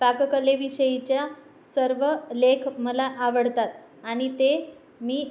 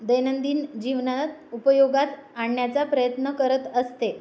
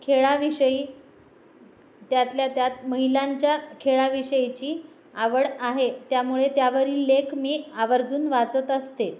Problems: none marked